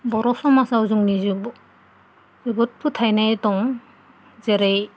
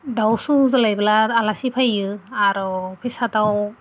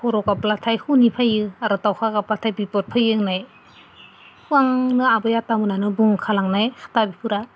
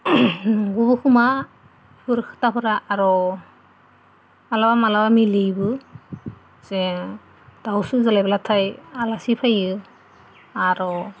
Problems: none marked